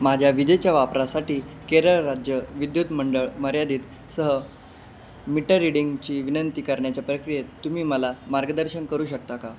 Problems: constant background noise